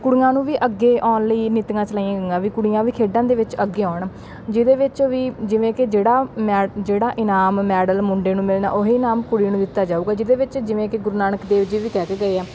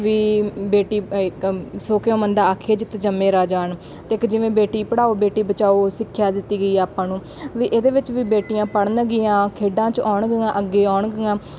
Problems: background sounds at intervals